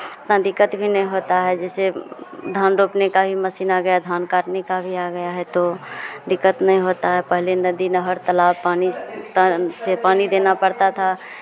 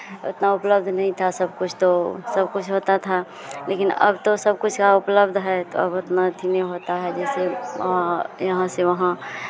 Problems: none marked